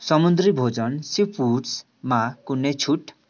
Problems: background sounds at intervals